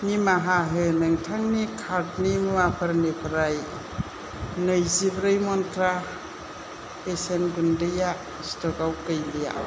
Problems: constant background noise